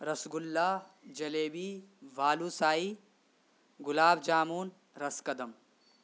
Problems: constant background noise